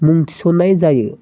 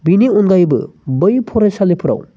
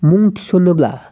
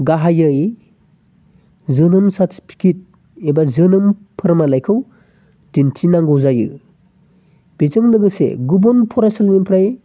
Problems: constant background noise